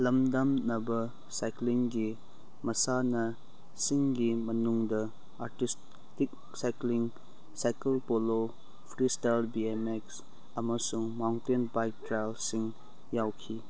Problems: background sounds at intervals